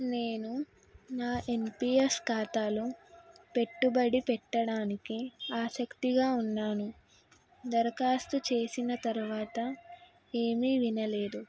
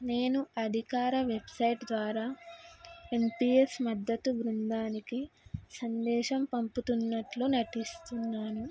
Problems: background sounds at intervals